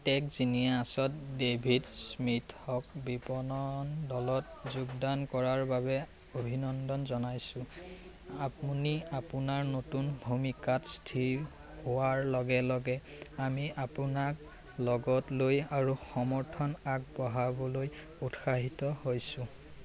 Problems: constant background noise, background conversations at intervals